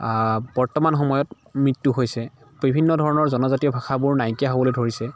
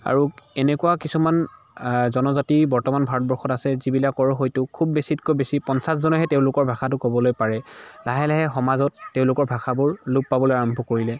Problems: background sounds at intervals, continuous background conversations